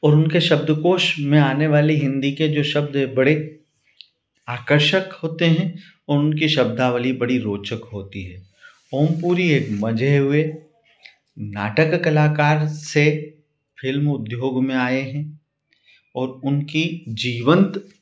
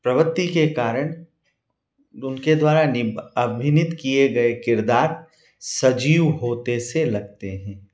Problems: none marked